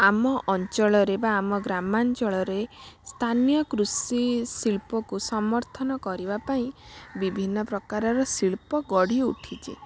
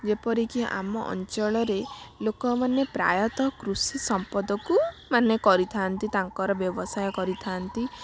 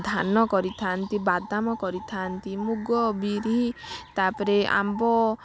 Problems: constant background noise